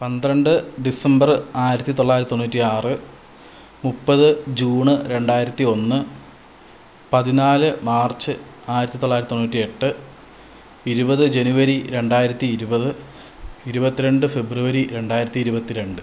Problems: constant background noise, low volume